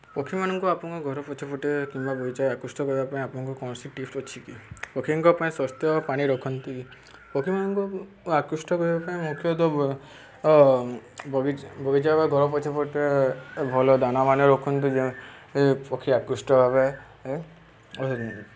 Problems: constant background noise